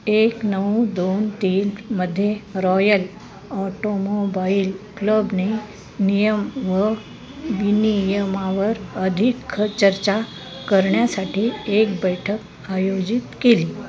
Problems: constant background noise, continuous background conversations